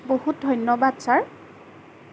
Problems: constant background noise